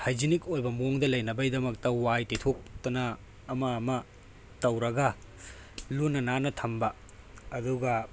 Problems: background sounds at intervals